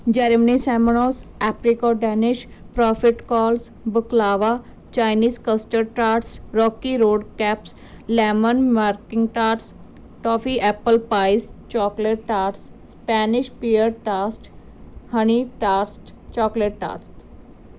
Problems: background sounds at intervals